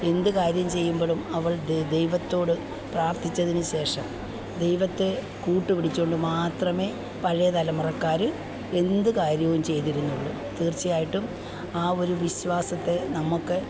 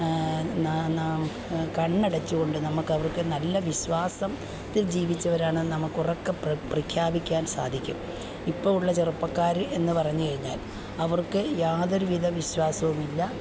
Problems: background sounds at intervals